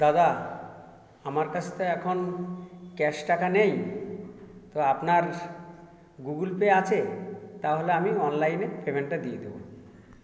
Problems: constant background noise